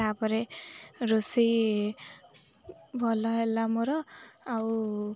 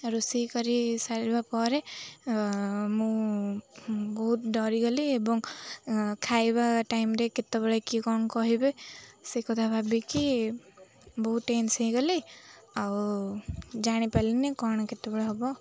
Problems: constant background noise, continuous background conversations